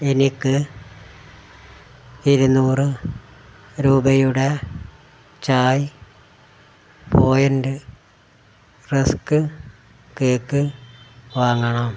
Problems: none marked